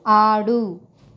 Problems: constant background noise